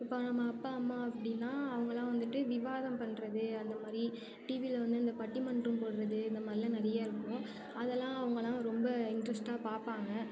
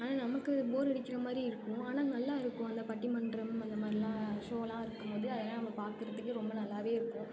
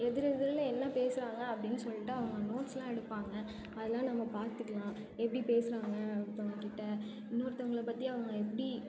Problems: continuous background conversations